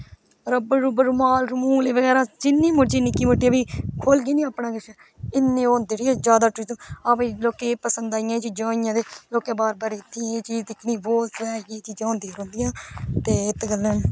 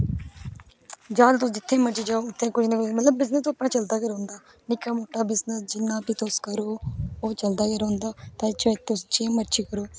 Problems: background sounds at intervals